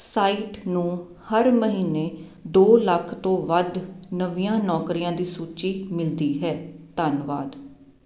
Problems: constant background noise